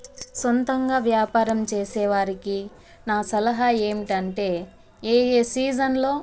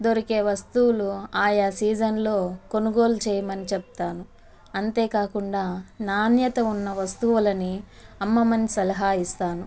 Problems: constant background noise